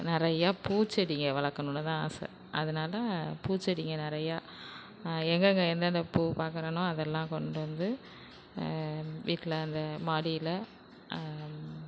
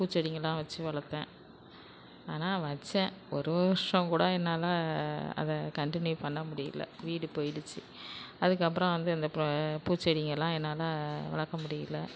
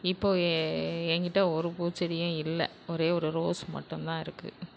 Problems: constant background noise